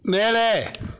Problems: none marked